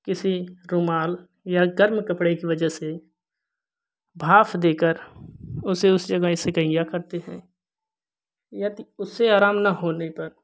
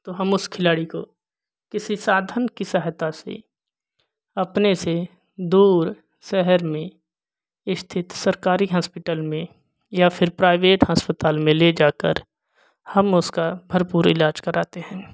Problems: none marked